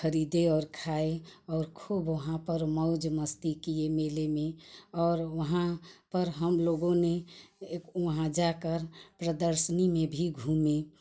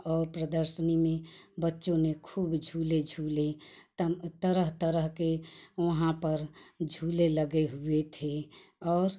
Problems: none marked